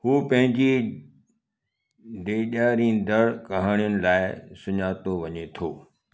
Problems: echo